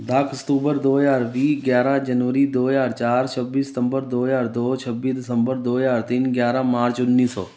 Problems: none marked